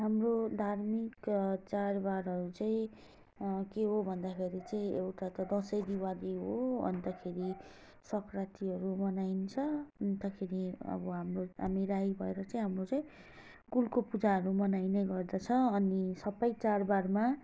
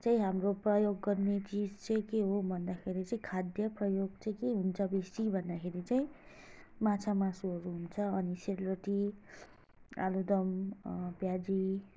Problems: low volume